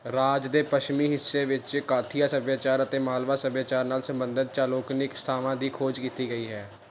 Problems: none marked